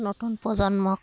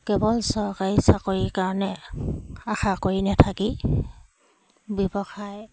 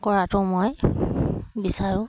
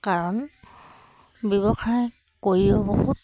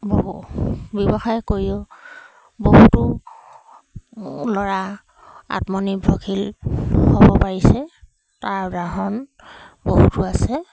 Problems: background sounds at intervals